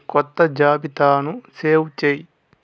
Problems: background sounds at intervals, background conversations at intervals